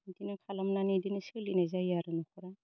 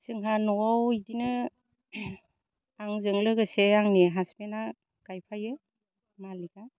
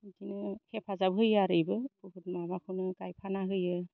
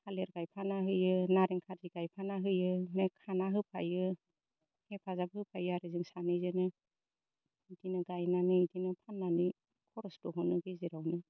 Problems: low volume